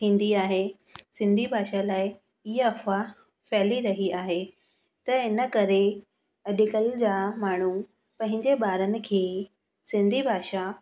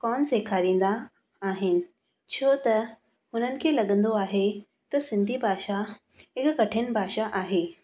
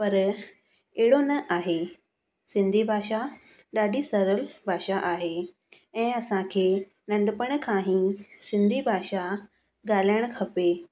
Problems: background sounds at intervals